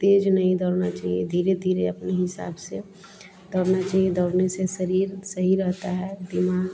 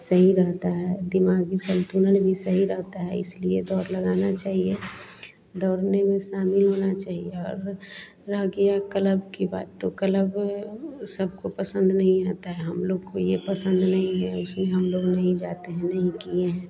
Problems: constant background noise